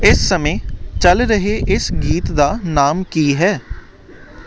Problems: none marked